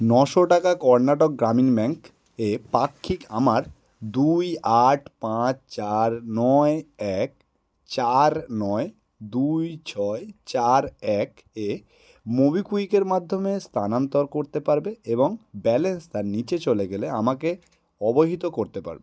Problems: none marked